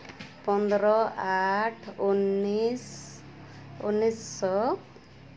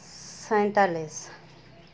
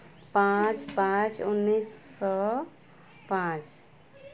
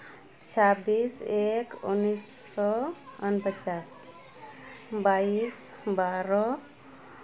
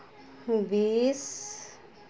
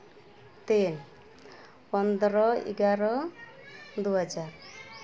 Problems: constant background noise, continuous background conversations